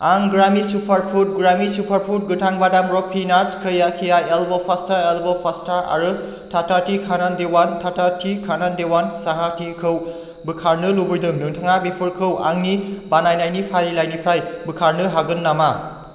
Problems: constant background noise